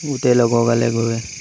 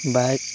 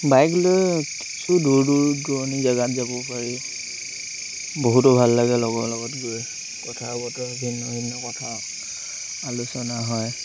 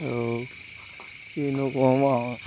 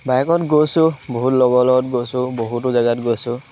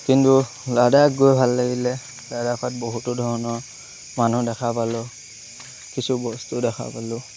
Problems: constant background noise